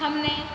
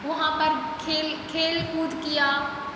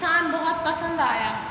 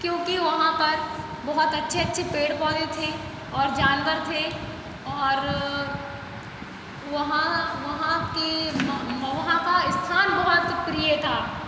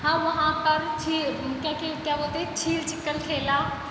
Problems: constant background noise